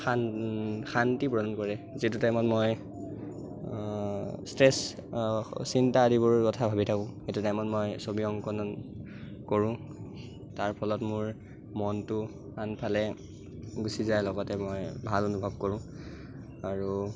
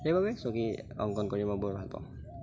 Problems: constant background noise